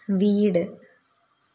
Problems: constant background noise, low volume